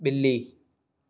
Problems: none marked